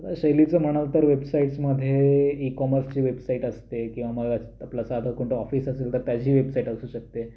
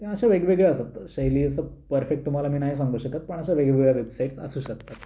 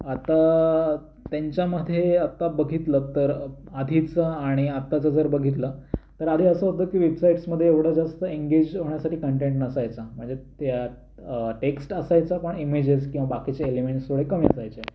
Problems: constant background noise